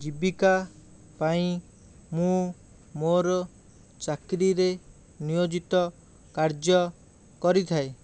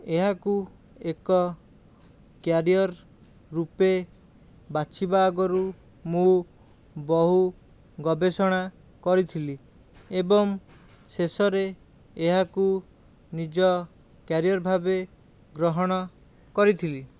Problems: none marked